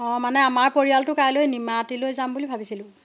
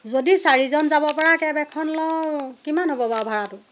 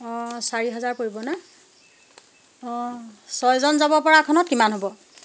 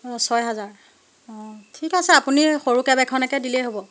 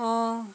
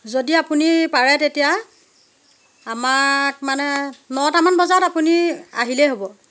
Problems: constant background noise